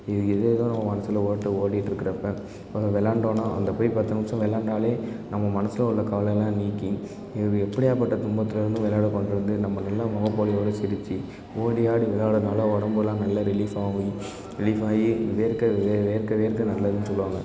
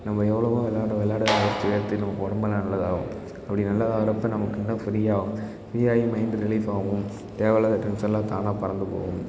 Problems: constant background noise, background conversations at intervals